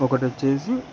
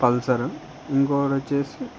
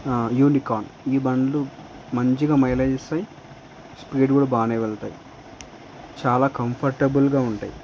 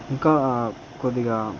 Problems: none marked